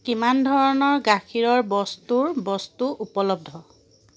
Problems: constant background noise